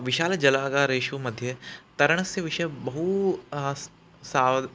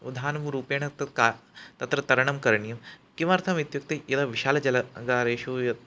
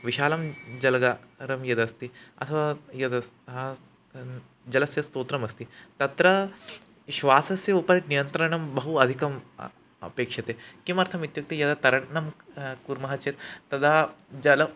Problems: background sounds at intervals